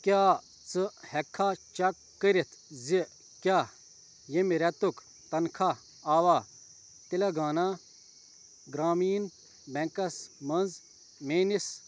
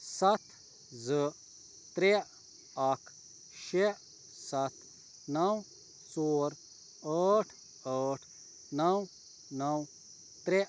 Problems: none marked